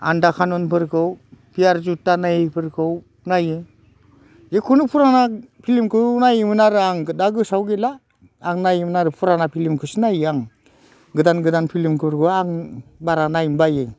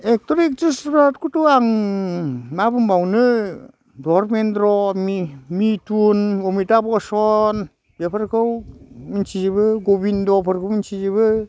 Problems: constant background noise